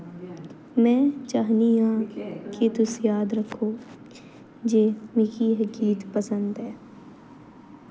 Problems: constant background noise